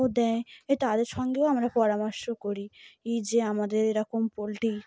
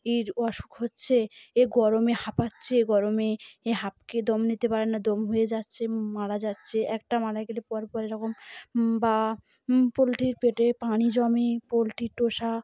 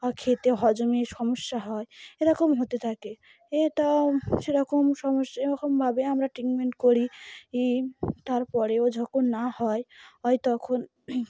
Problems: background sounds at intervals